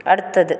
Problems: none marked